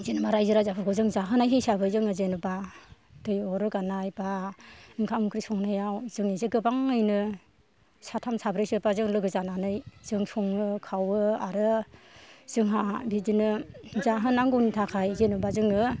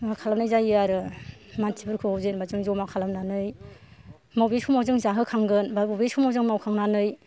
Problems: none marked